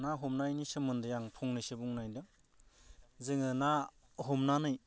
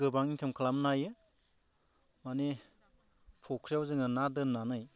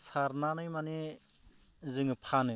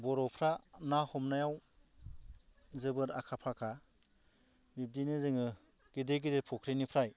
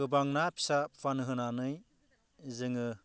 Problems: low volume